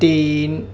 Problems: constant background noise